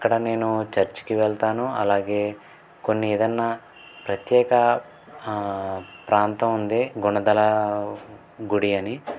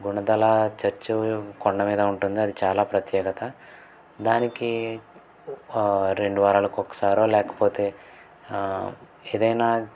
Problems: none marked